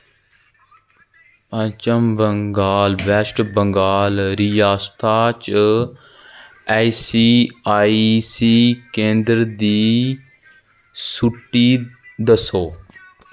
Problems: constant background noise